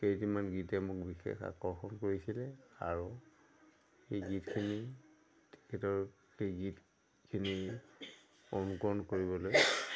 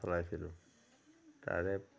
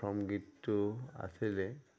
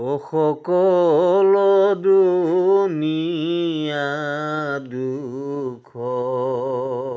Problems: none marked